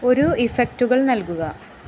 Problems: constant background noise